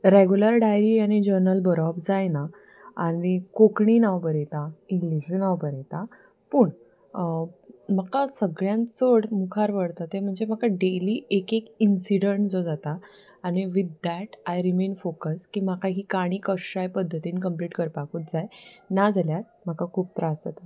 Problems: background sounds at intervals